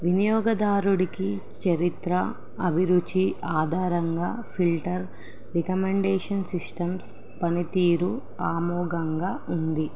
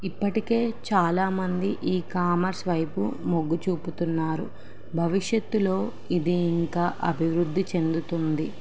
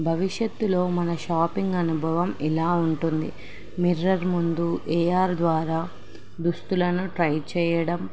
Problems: none marked